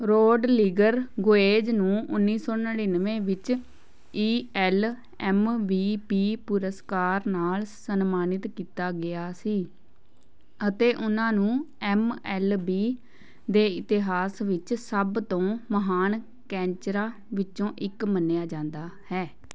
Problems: none marked